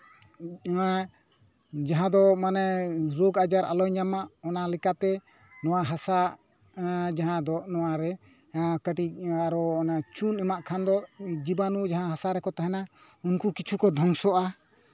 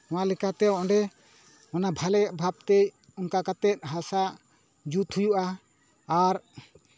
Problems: none marked